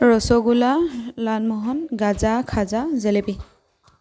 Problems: none marked